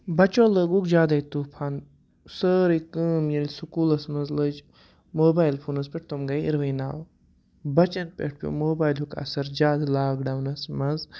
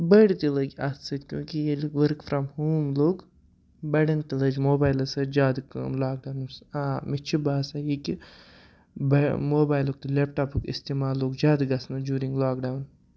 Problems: background sounds at intervals